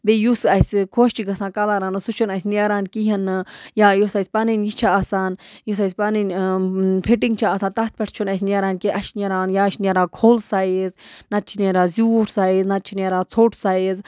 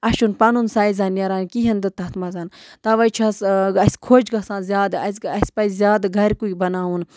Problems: background sounds at intervals